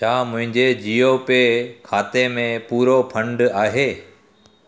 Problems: background sounds at intervals, echo